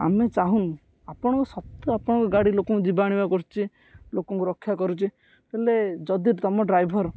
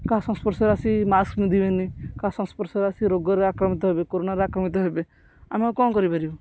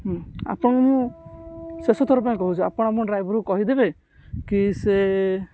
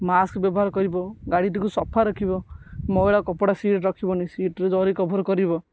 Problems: none marked